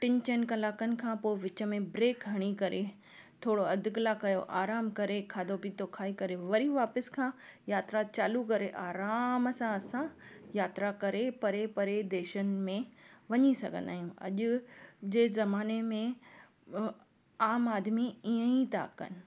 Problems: none marked